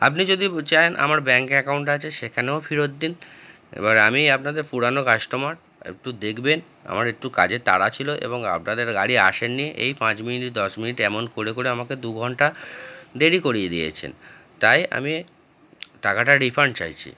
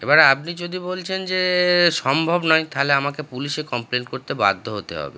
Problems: constant background noise